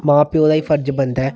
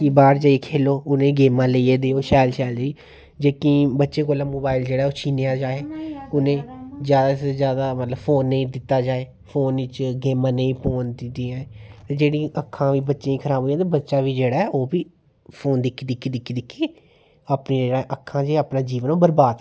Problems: none marked